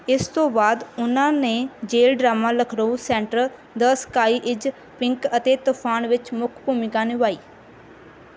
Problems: background sounds at intervals